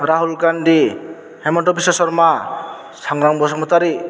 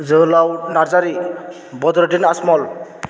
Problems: background sounds at intervals